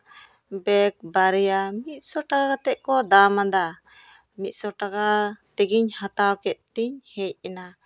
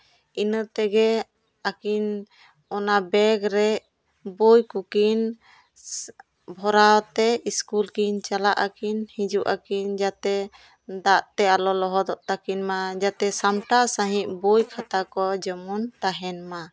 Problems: constant background noise